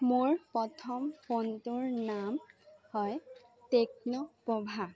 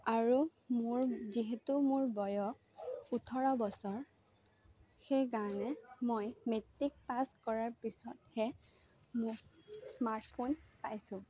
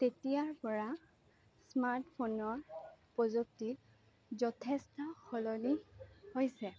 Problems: low volume